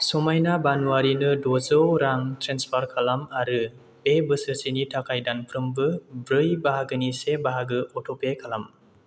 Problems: none marked